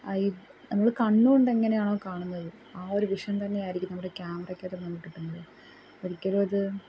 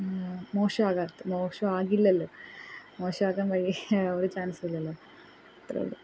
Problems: background sounds at intervals, low volume